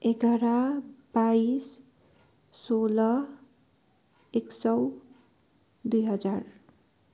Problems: none marked